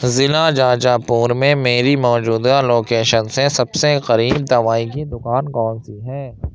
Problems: constant background noise